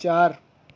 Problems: none marked